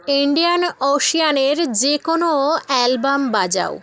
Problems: continuous background conversations